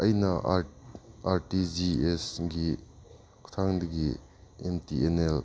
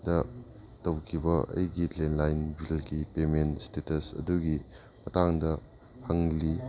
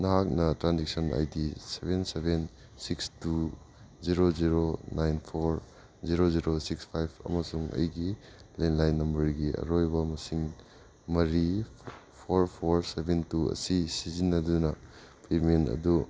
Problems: background sounds at intervals